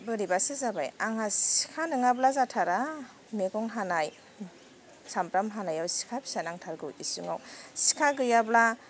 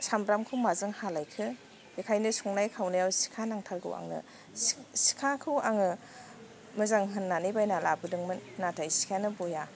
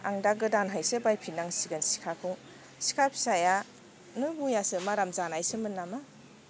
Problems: constant background noise